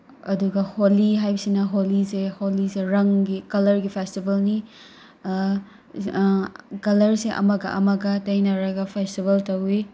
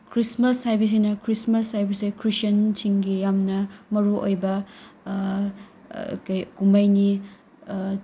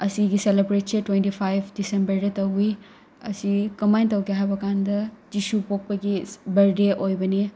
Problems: background sounds at intervals